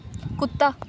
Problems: background sounds at intervals